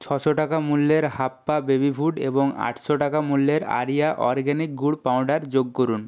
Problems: constant background noise